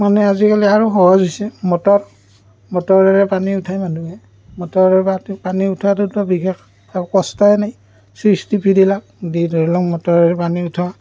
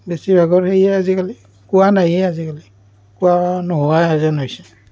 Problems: constant background noise